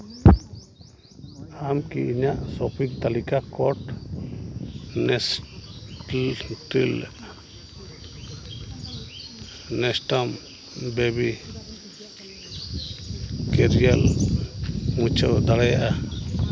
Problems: constant background noise, background conversations at intervals